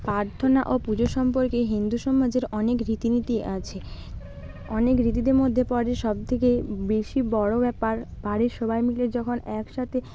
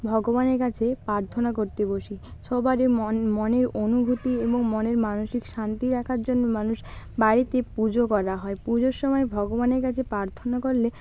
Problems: background sounds at intervals